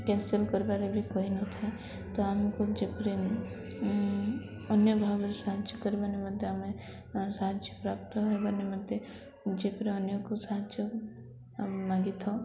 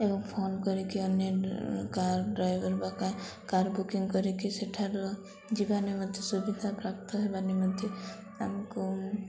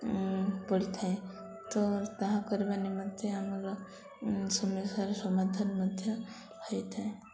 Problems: constant background noise, continuous background conversations